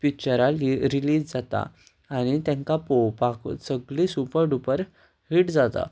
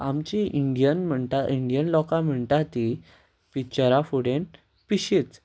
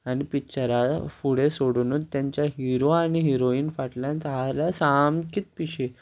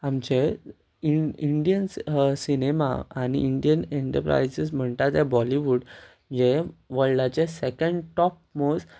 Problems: constant background noise